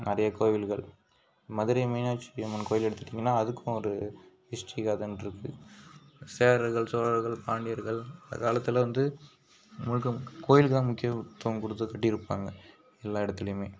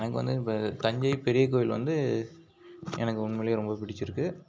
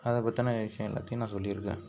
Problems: background sounds at intervals